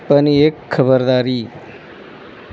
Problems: constant background noise